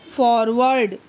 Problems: constant background noise